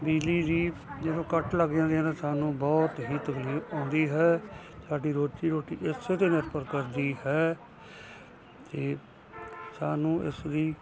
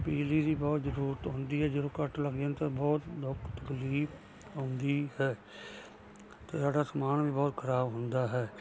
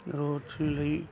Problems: constant background noise